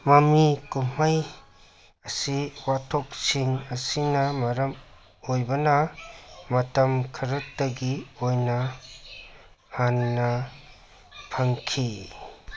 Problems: none marked